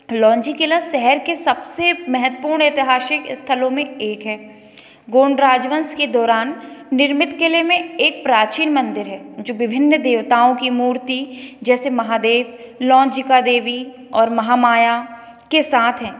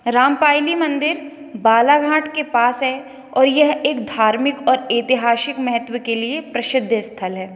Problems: echo